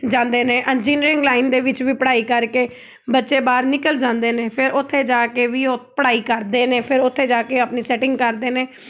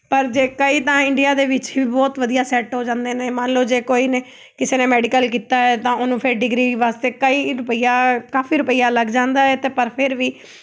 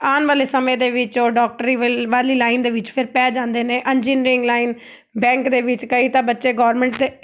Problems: background sounds at intervals